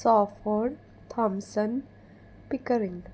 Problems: none marked